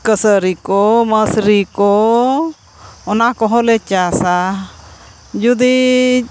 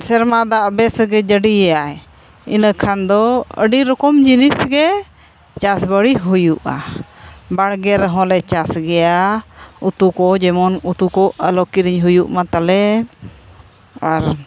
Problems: constant background noise